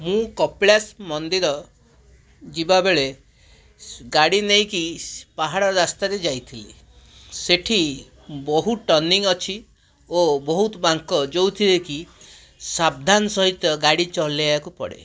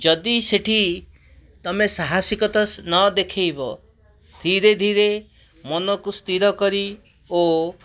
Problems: background sounds at intervals